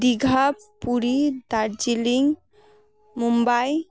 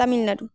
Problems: background conversations at intervals